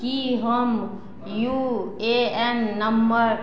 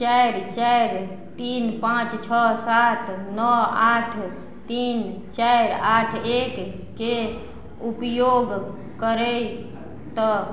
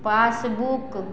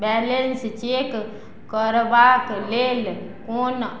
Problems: background conversations at intervals